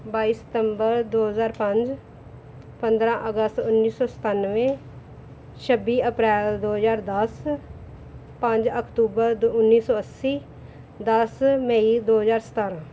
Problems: none marked